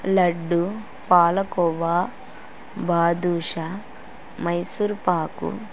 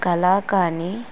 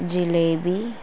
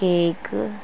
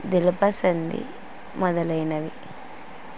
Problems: constant background noise